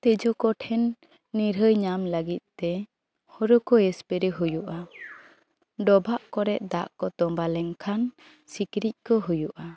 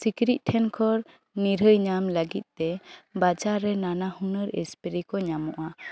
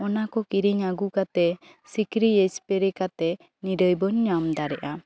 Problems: background sounds at intervals, background conversations at intervals